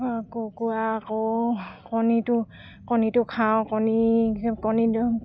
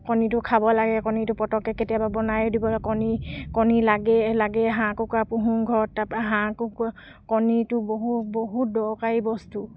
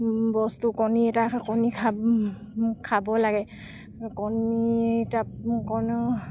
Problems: none marked